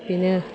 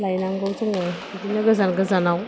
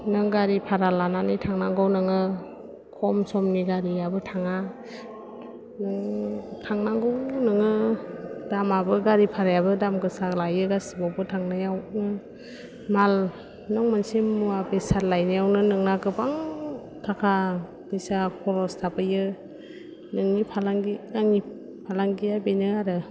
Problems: low volume